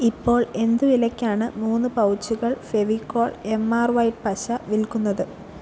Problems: none marked